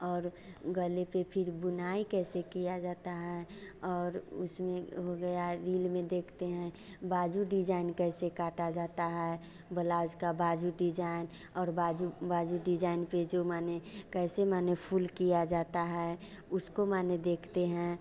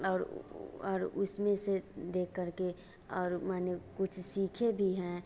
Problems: none marked